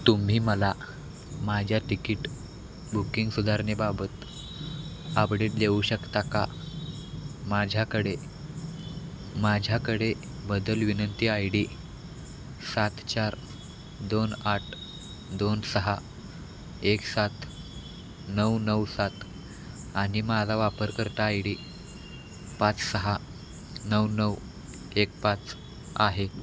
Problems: none marked